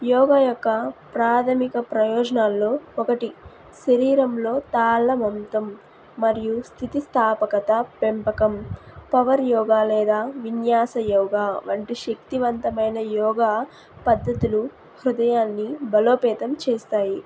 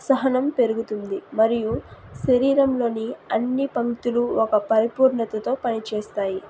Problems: background sounds at intervals